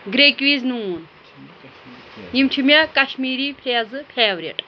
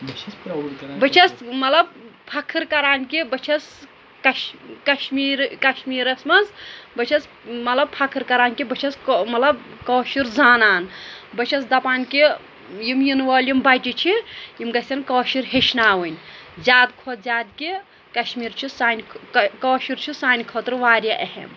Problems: constant background noise, background conversations at intervals